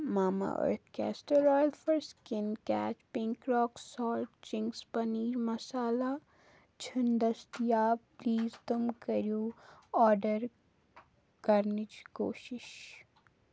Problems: background sounds at intervals